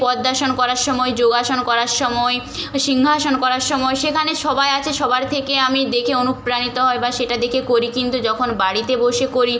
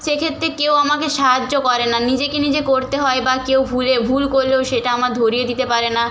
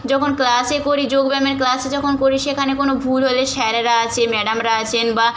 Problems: none marked